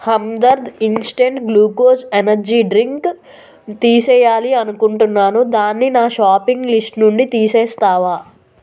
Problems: constant background noise